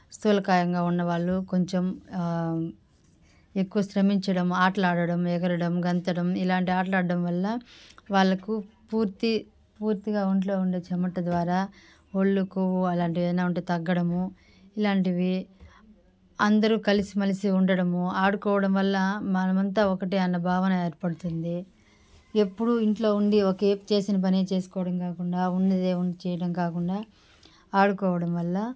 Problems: background sounds at intervals, background conversations at intervals